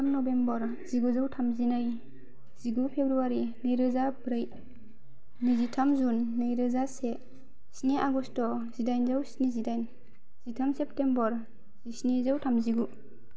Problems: low volume